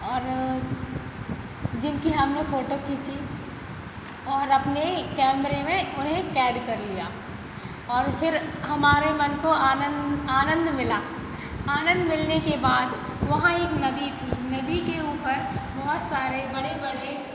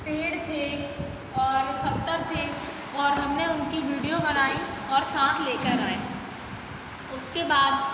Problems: constant background noise